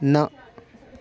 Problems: background conversations at intervals